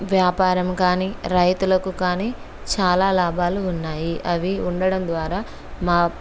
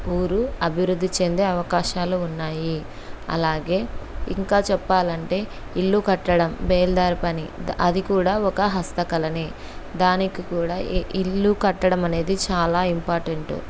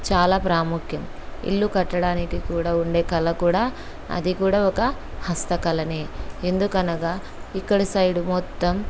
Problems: background sounds at intervals